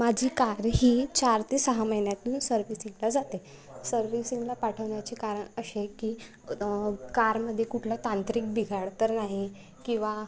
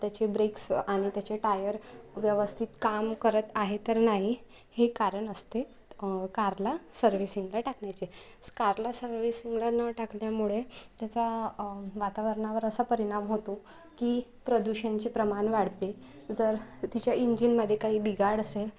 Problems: none marked